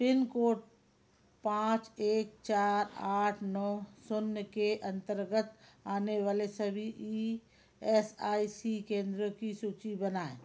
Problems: constant background noise